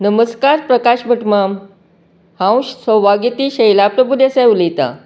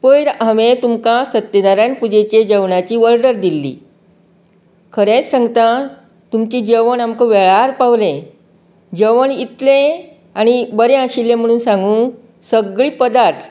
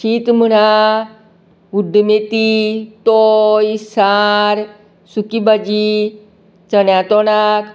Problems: background sounds at intervals, background conversations at intervals